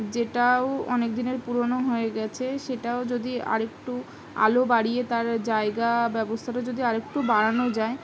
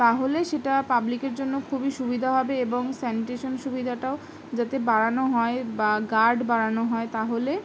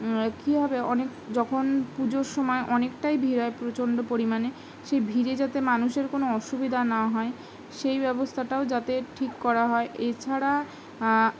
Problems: none marked